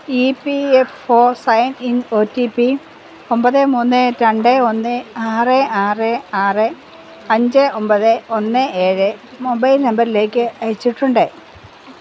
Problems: constant background noise